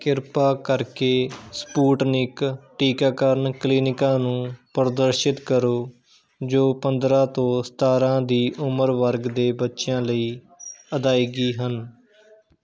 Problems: background conversations at intervals